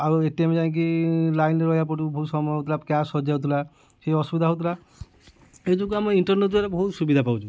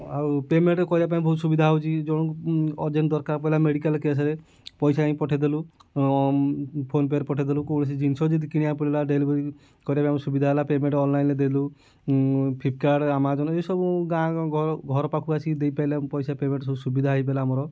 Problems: none marked